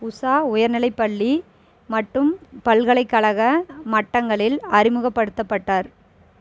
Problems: continuous background conversations